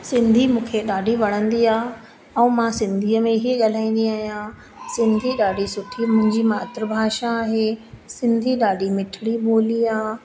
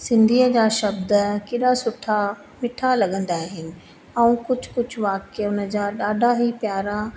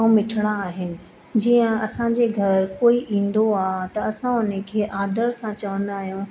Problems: constant background noise, echo